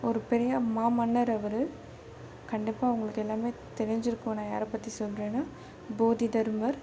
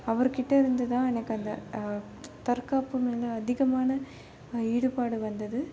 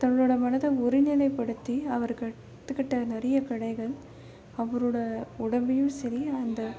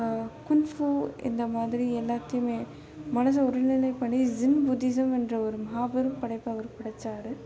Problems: constant background noise